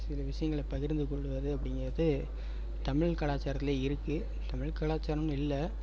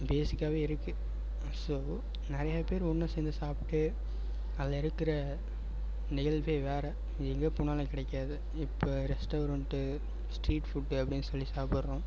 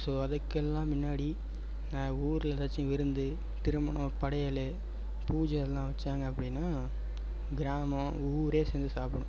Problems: background sounds at intervals